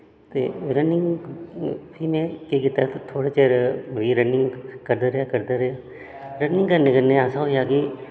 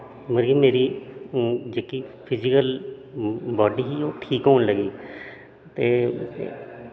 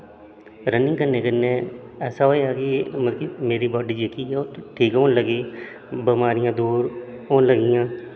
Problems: constant background noise, echo